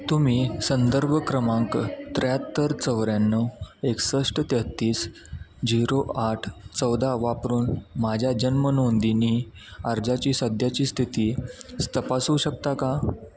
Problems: background sounds at intervals, background conversations at intervals